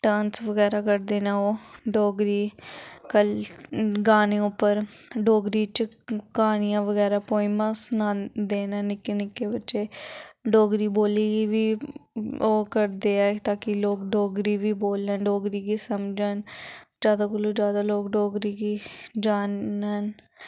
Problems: none marked